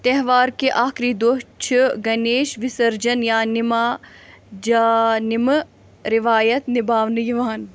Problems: none marked